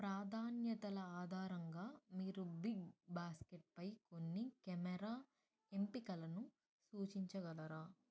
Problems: low volume